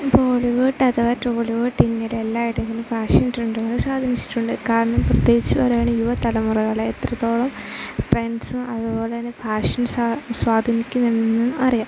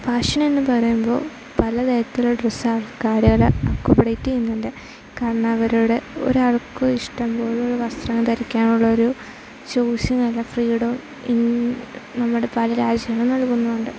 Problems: constant background noise, low volume